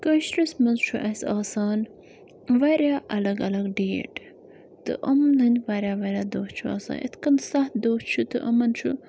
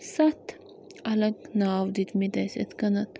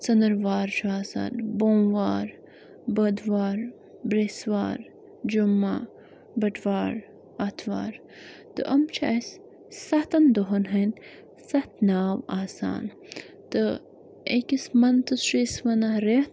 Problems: constant background noise